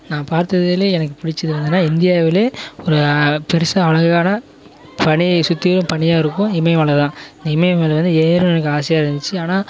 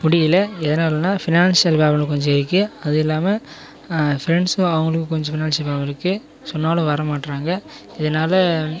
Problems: none marked